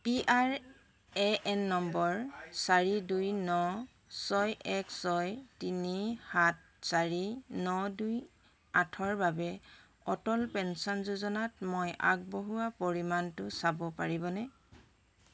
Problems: constant background noise, background conversations at intervals